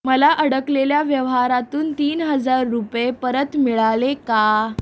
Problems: constant background noise